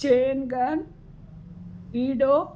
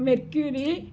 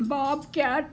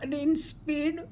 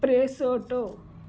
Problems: none marked